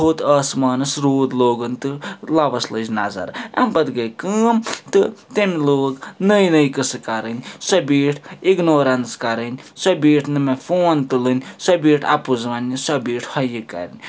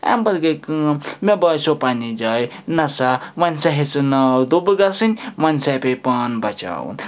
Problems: background sounds at intervals